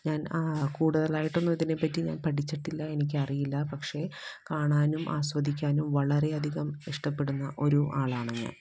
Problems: background sounds at intervals, low volume